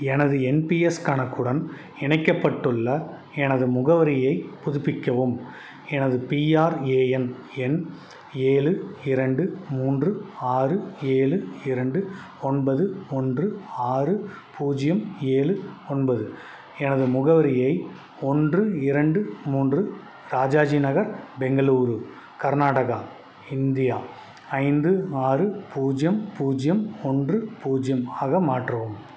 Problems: none marked